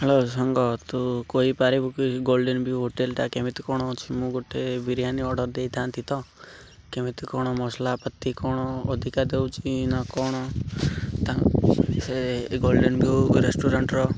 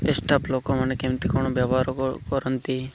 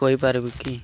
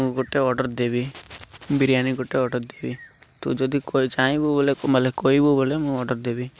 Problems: constant background noise